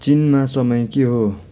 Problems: none marked